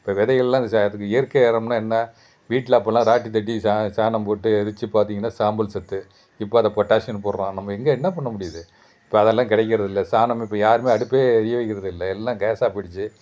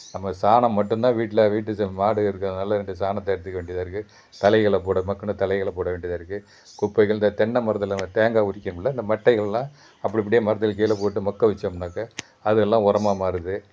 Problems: background sounds at intervals